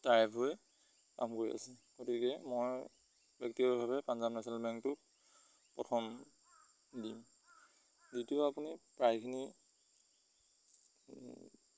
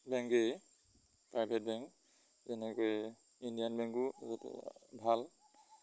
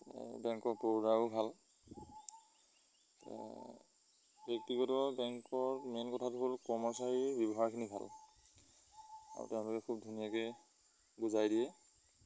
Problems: constant background noise